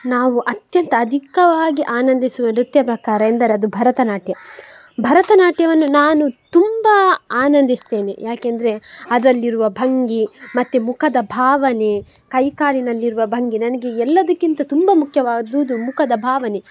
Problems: background sounds at intervals